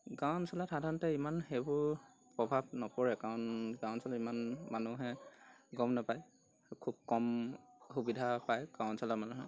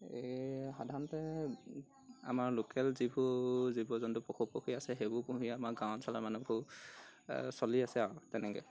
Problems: background sounds at intervals